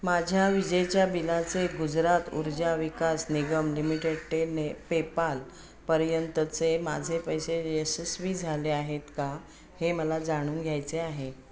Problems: constant background noise